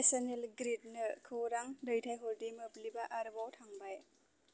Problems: constant background noise